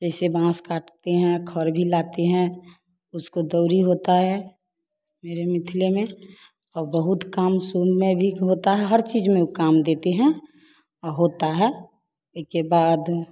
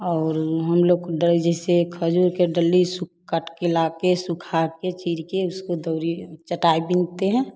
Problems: continuous background conversations